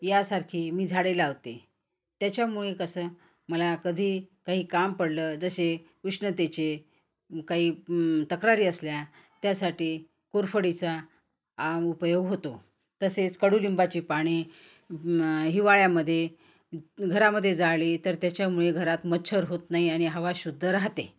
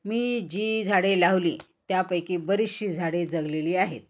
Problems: constant background noise